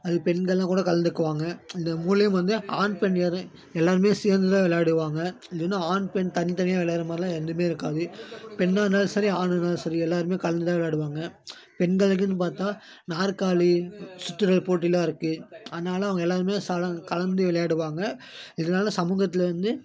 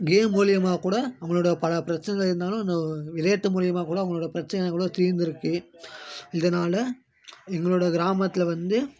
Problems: constant background noise